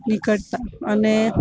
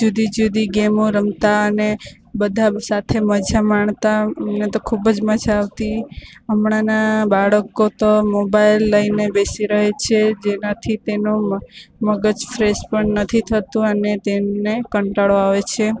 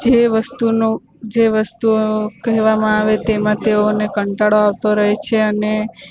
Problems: constant background noise